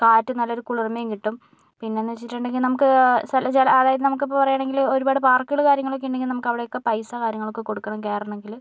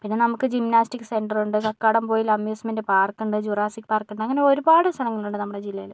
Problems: none marked